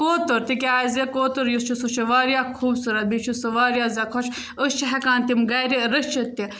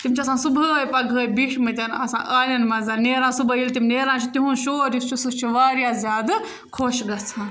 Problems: background conversations at intervals